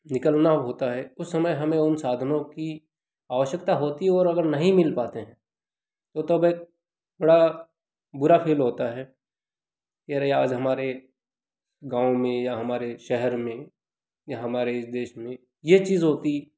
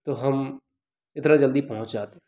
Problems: constant background noise